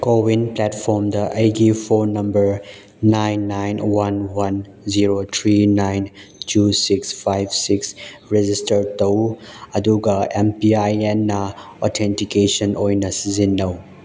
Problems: background sounds at intervals